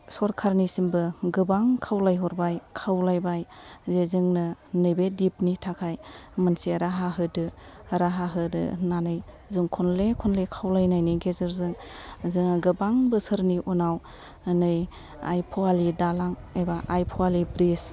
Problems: background sounds at intervals, low volume